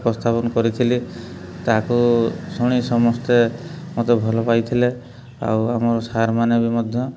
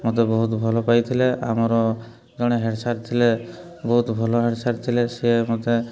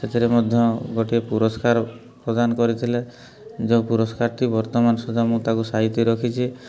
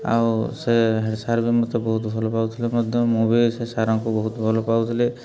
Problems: constant background noise